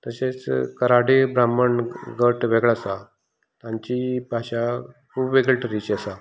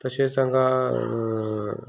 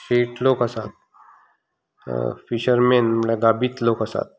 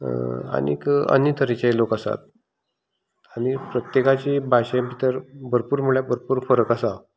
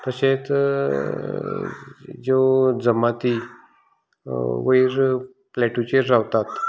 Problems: constant background noise